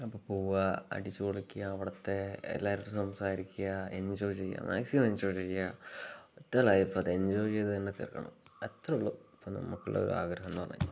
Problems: none marked